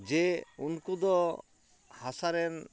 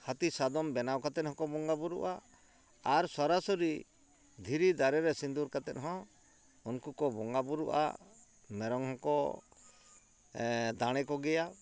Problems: background sounds at intervals